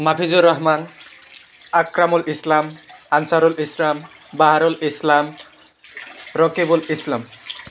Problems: constant background noise